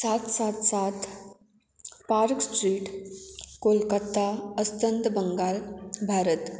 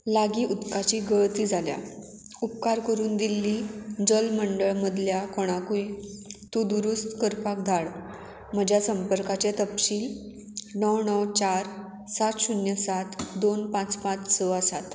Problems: background sounds at intervals